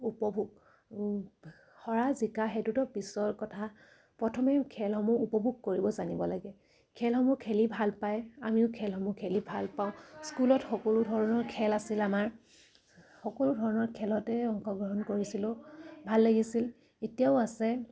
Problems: none marked